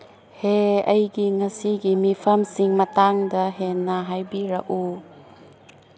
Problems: background sounds at intervals